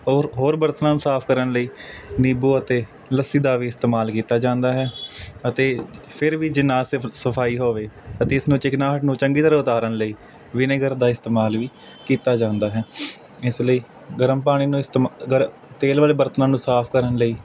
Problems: constant background noise